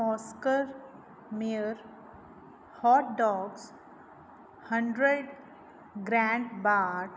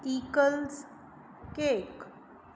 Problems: background sounds at intervals